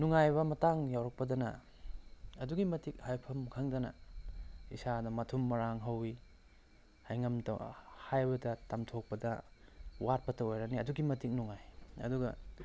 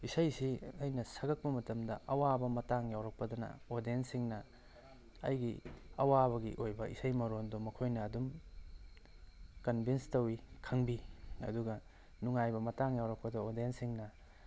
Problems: low volume